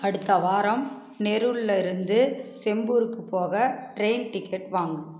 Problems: constant background noise